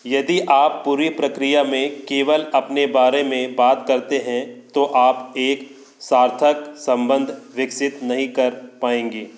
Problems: constant background noise